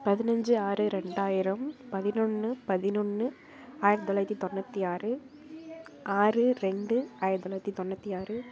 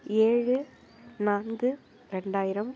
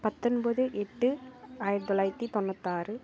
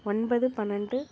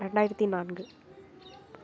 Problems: background sounds at intervals, background conversations at intervals